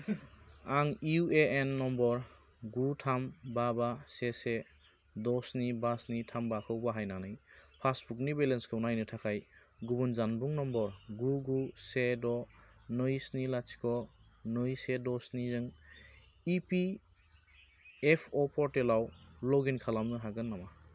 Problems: constant background noise